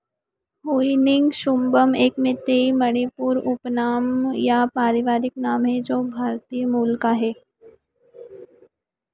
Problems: echo